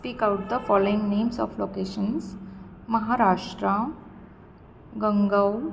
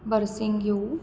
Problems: constant background noise